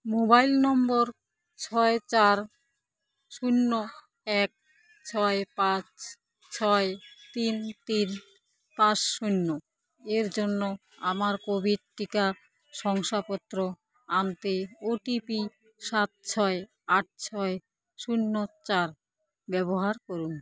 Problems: constant background noise, continuous background conversations